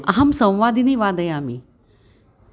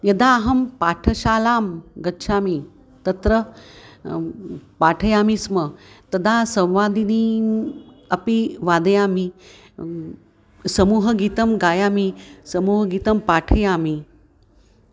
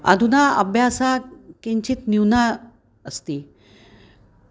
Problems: constant background noise